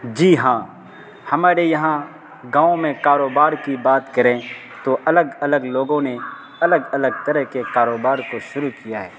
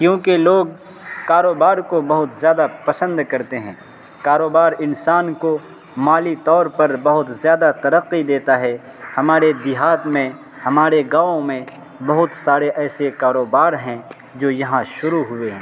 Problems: constant background noise